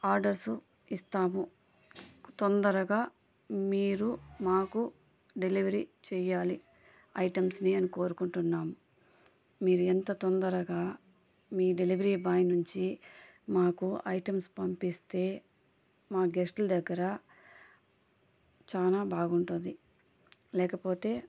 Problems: constant background noise, background conversations at intervals